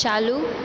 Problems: constant background noise